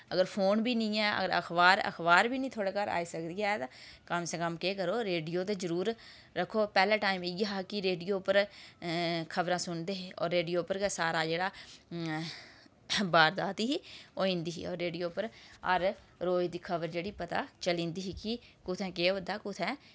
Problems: background sounds at intervals